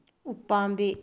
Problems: low volume